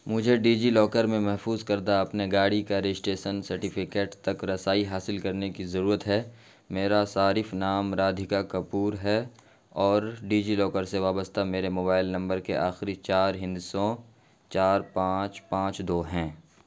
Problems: constant background noise